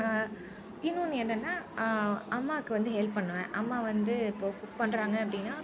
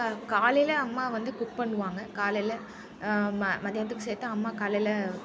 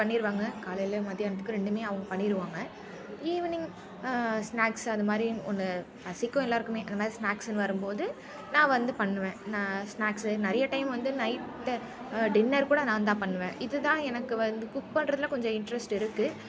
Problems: constant background noise